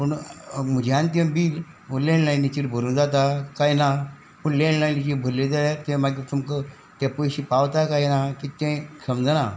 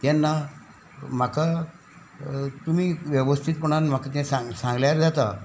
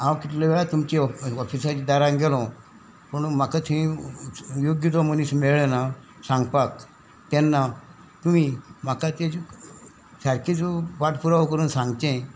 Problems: background sounds at intervals